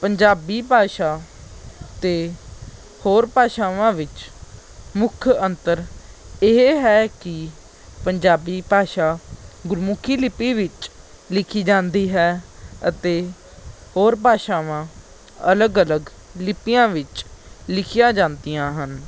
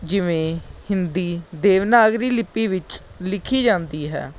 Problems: background sounds at intervals